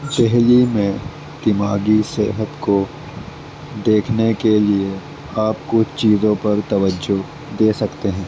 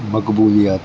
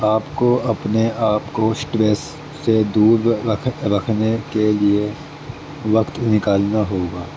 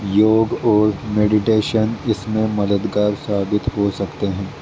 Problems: constant background noise